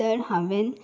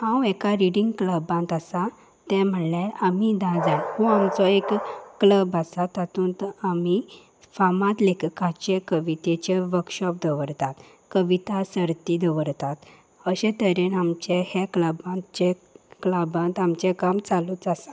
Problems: background sounds at intervals